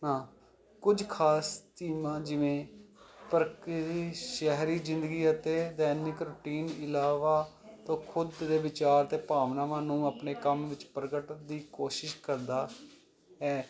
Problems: continuous background conversations